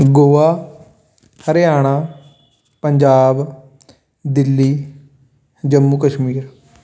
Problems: none marked